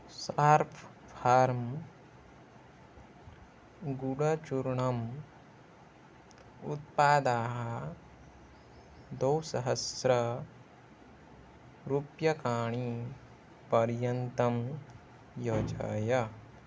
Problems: constant background noise